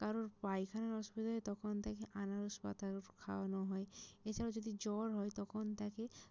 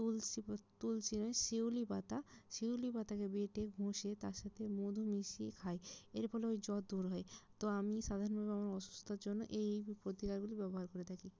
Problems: low volume